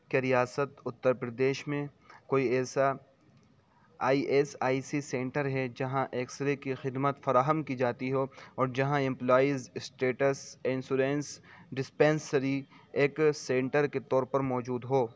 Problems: none marked